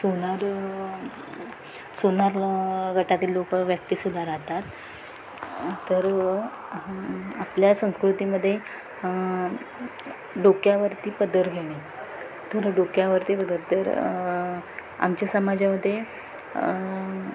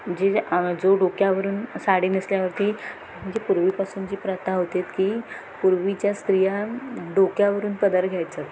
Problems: constant background noise, background conversations at intervals